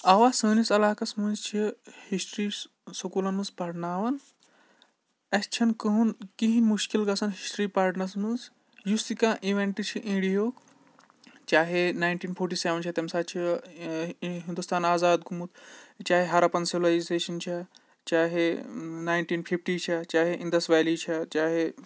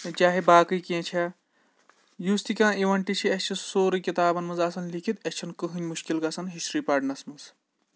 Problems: background sounds at intervals